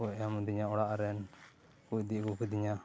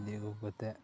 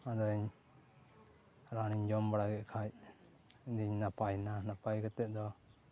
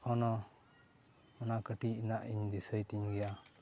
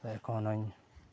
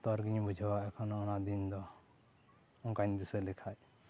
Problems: background sounds at intervals